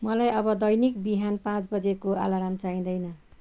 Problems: constant background noise